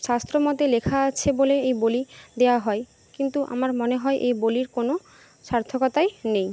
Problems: constant background noise